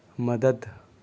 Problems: none marked